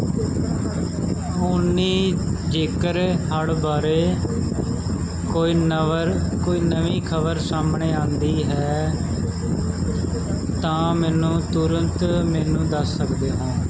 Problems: constant background noise, continuous background conversations